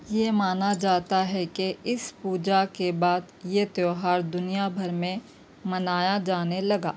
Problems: none marked